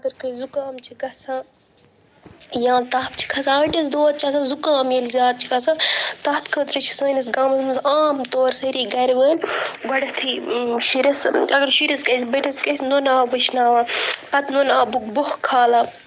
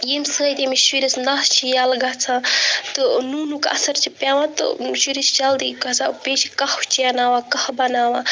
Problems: none marked